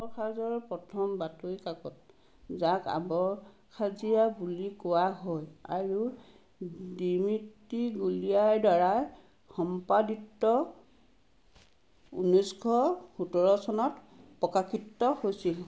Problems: none marked